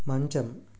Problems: low volume